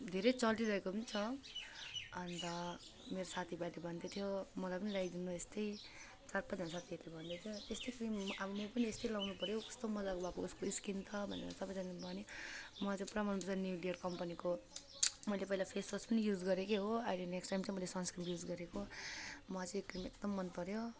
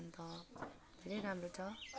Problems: background sounds at intervals